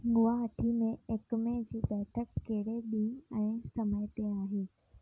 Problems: low volume